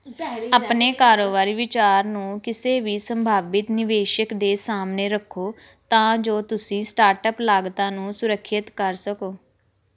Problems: background sounds at intervals